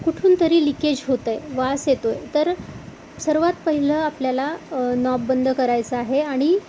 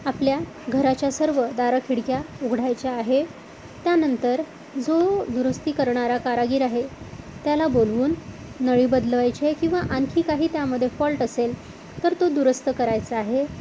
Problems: none marked